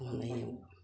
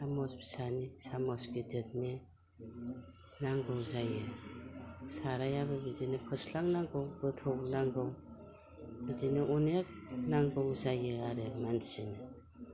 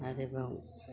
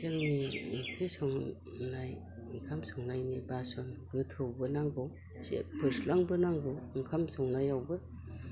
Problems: constant background noise